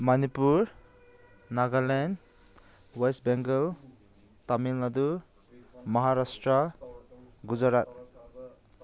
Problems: none marked